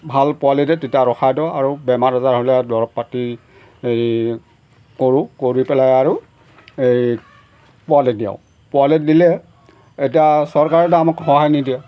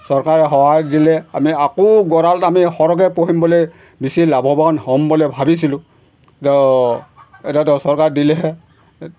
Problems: background sounds at intervals